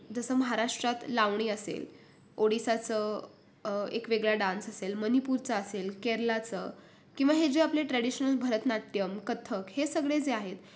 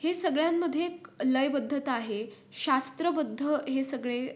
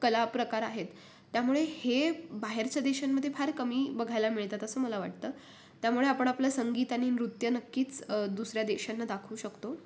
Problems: none marked